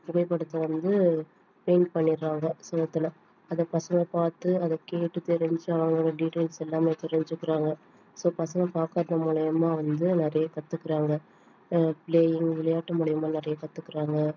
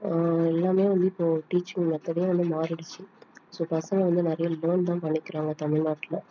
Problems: none marked